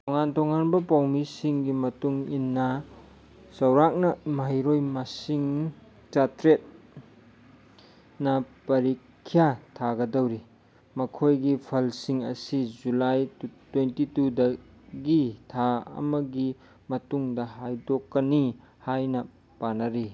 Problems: none marked